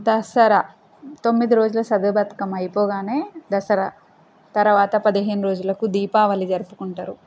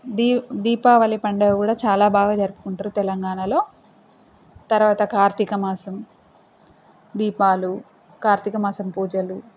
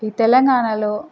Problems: constant background noise